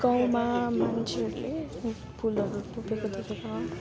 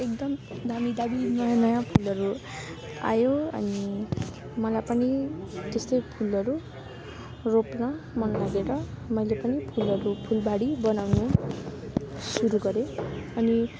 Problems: constant background noise, continuous background conversations